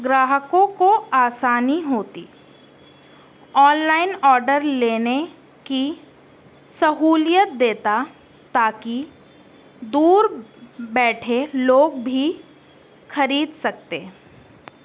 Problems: constant background noise